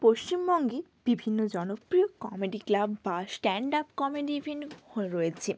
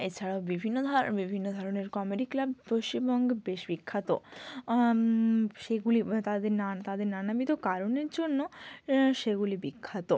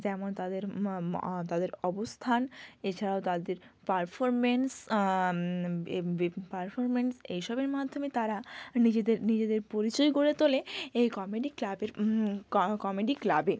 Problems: constant background noise